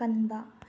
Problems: low volume